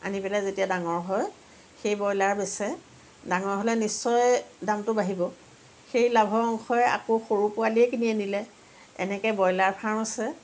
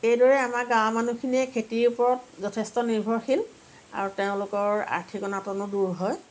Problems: none marked